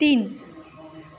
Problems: continuous background conversations